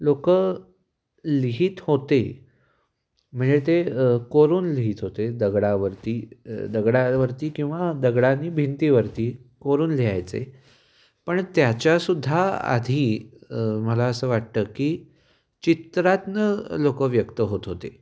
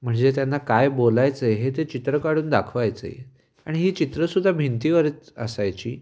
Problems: background sounds at intervals, echo